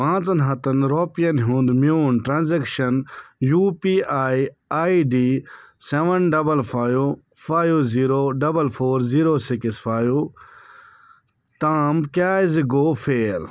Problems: none marked